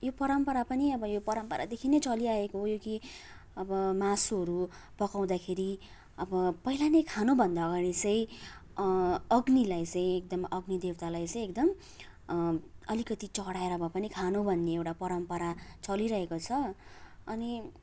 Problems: constant background noise